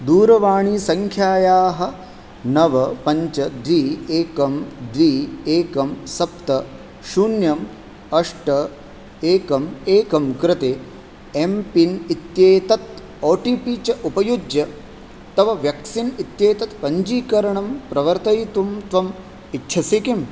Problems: none marked